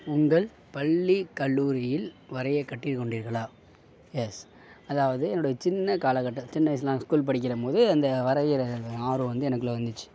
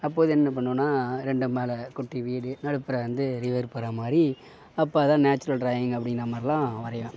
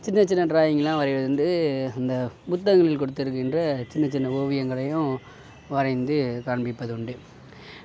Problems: none marked